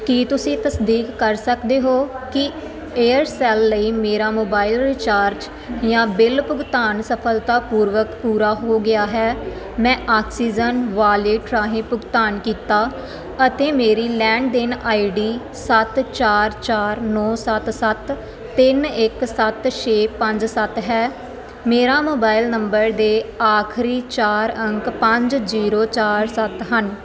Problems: constant background noise